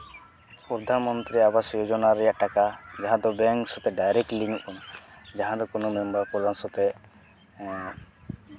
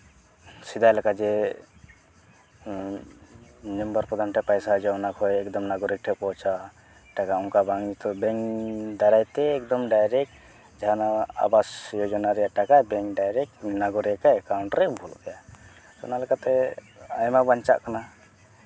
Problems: none marked